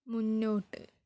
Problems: none marked